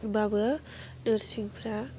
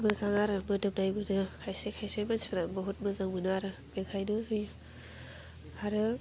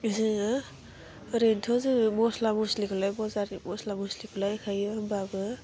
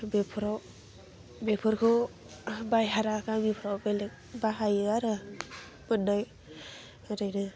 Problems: constant background noise